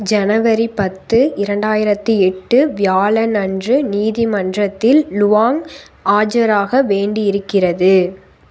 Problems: constant background noise